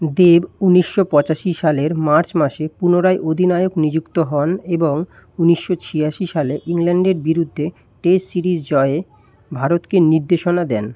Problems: background sounds at intervals